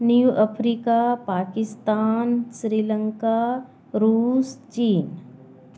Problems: constant background noise